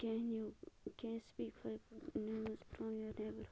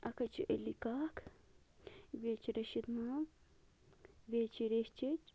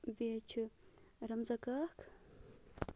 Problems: constant background noise, low volume